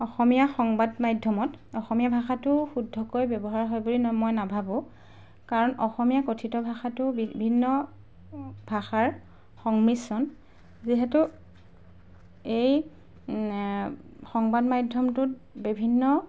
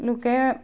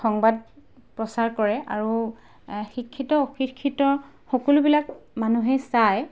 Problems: background sounds at intervals